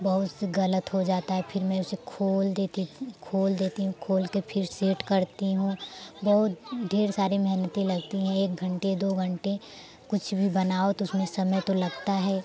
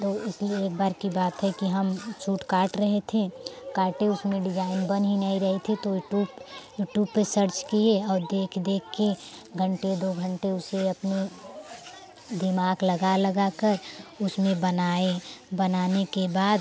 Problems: constant background noise